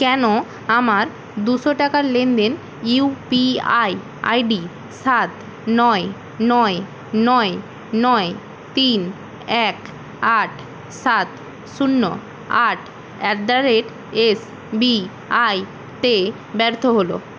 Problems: constant background noise